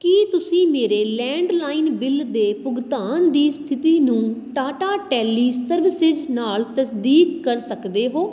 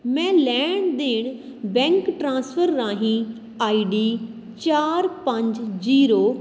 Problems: constant background noise